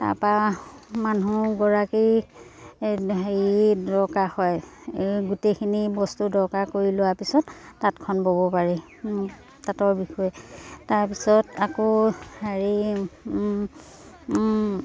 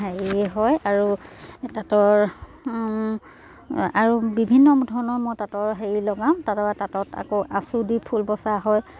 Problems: constant background noise